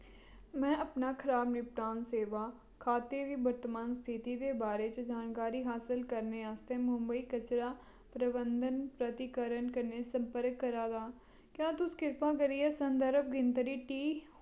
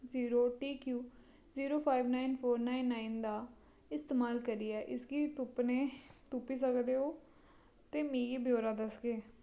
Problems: low volume